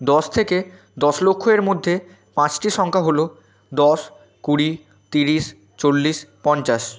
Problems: constant background noise